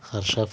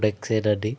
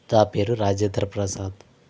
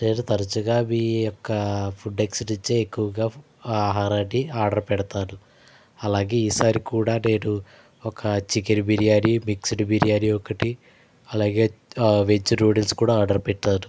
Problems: background sounds at intervals